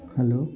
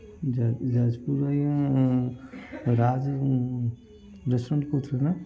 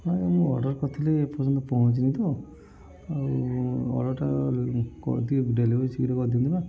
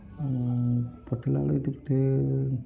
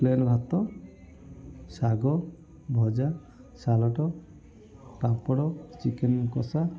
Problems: none marked